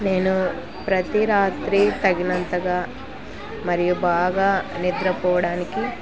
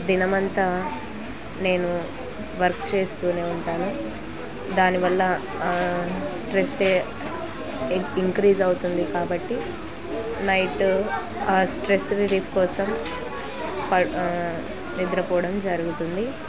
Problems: constant background noise